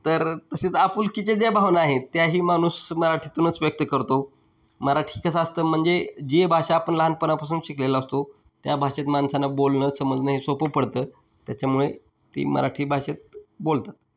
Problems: background sounds at intervals